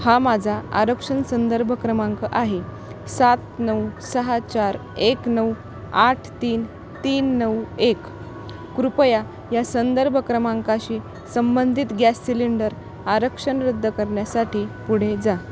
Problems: none marked